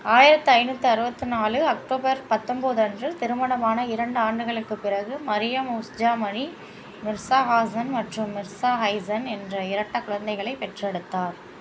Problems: constant background noise